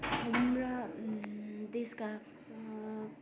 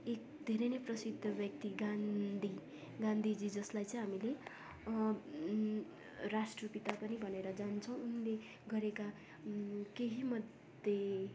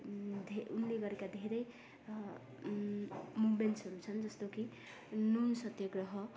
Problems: none marked